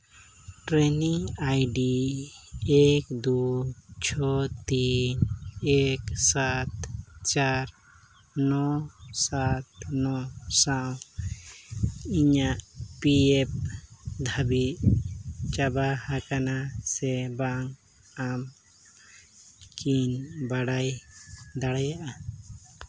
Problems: background sounds at intervals